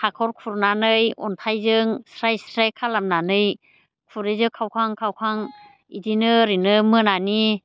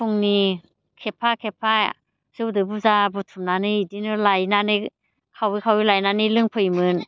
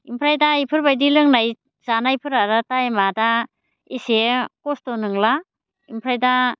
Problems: low volume